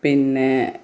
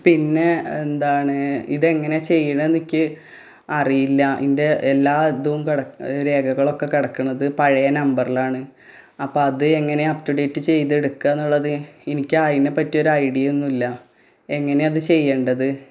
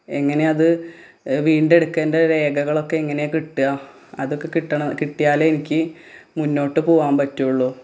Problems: none marked